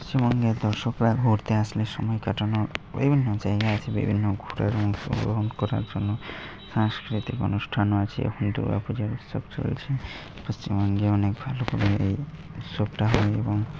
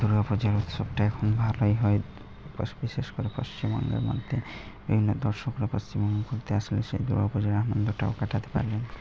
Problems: constant background noise